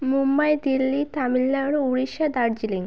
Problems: none marked